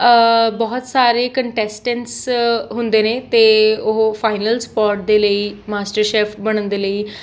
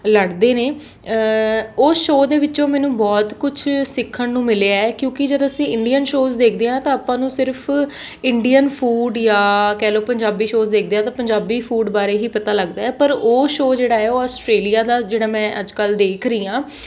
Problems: background sounds at intervals